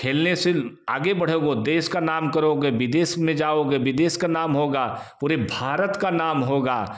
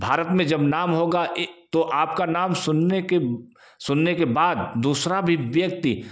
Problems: echo